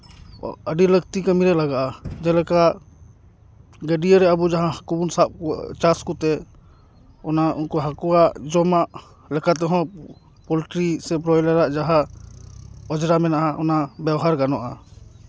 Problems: none marked